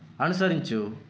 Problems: constant background noise